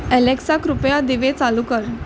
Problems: constant background noise